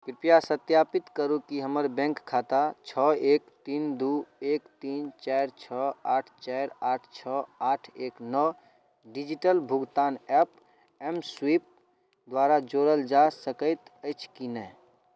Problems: none marked